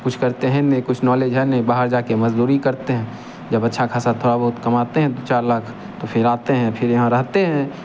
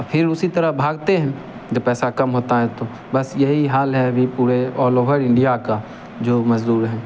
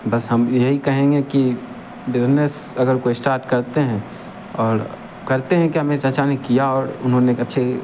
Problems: none marked